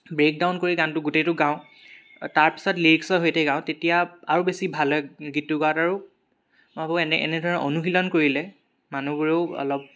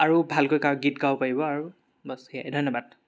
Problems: background sounds at intervals